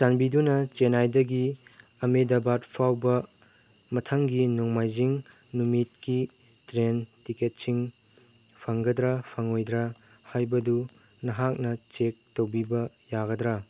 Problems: none marked